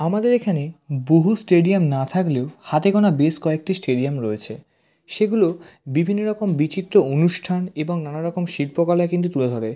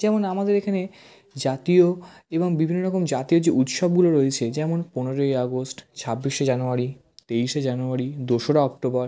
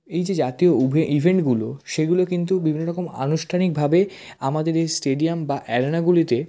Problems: none marked